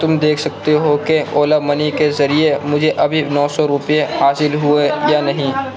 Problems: constant background noise, background conversations at intervals